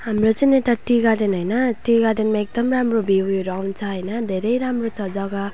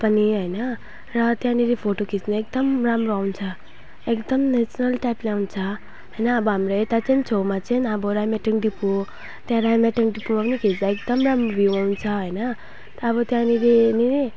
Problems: background sounds at intervals